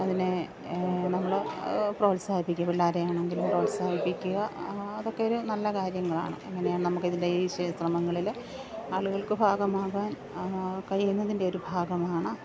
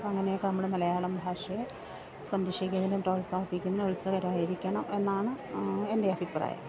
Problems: background sounds at intervals, background conversations at intervals, low volume